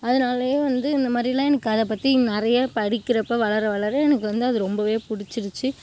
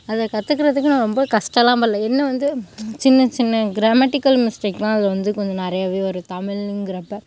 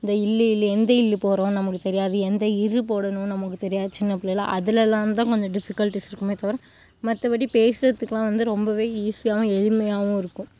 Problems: background sounds at intervals